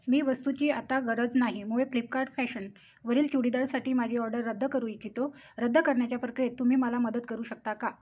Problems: none marked